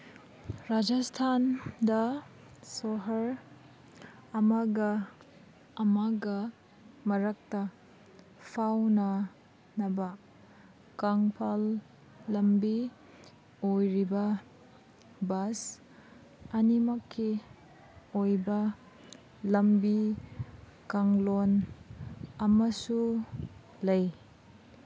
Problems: none marked